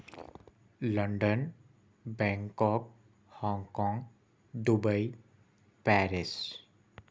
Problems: none marked